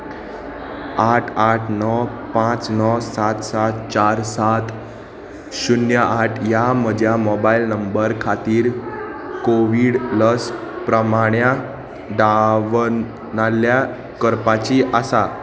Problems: constant background noise, continuous background conversations